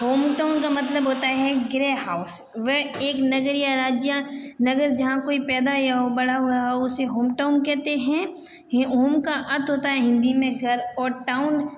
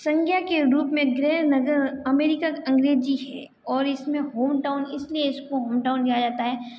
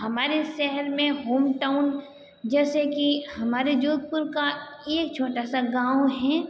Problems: background sounds at intervals